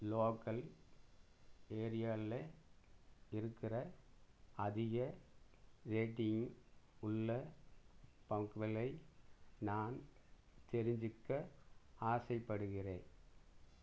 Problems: low volume